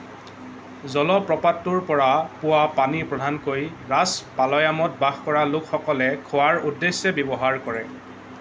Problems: none marked